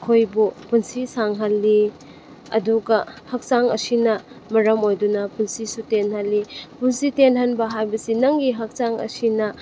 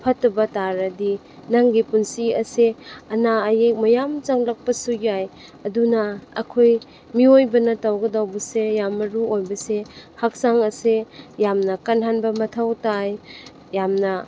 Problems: background sounds at intervals